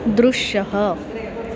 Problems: background sounds at intervals